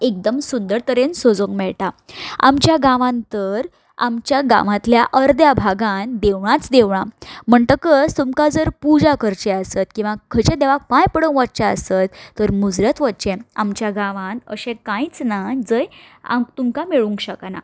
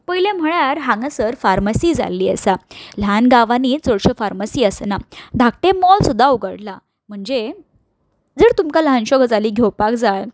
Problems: none marked